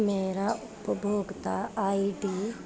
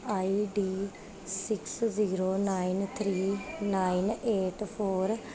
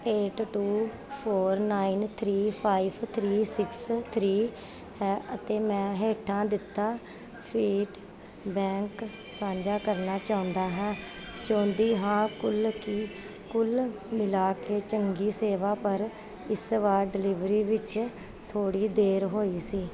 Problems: background sounds at intervals, continuous background conversations